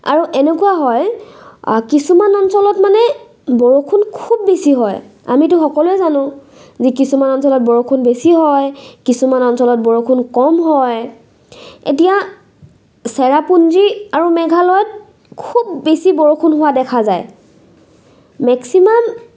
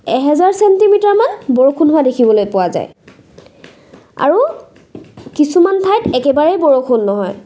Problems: none marked